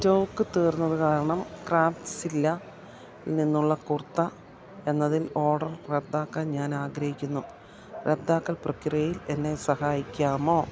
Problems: constant background noise